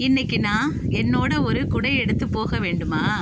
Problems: constant background noise